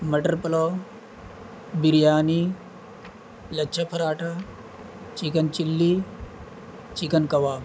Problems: constant background noise